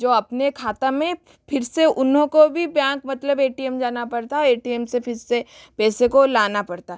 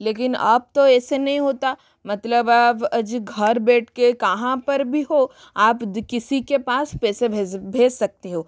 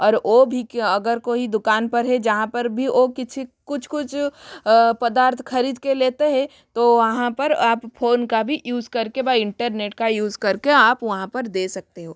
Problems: constant background noise